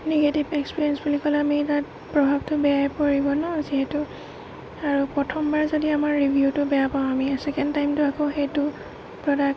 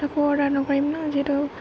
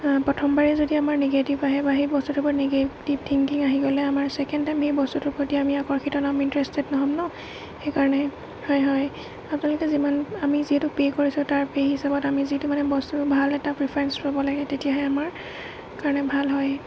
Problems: constant background noise, low volume